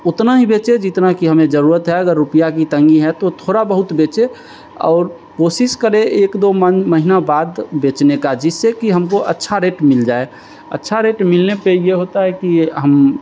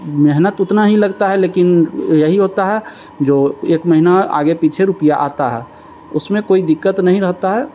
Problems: constant background noise